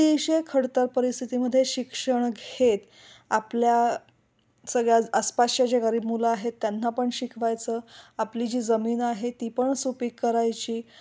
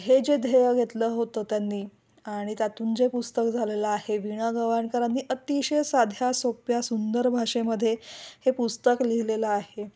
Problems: none marked